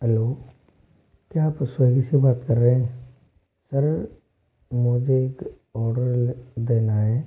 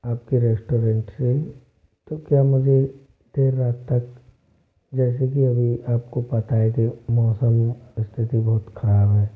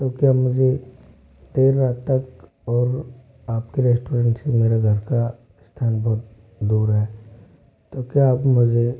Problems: low volume